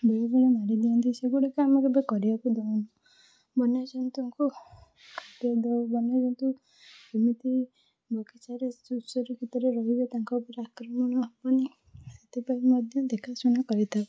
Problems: none marked